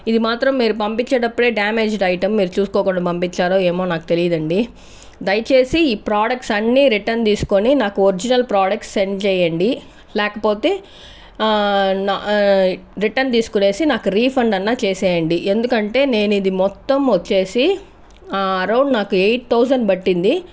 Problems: none marked